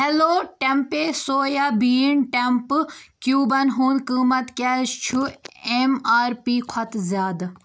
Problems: none marked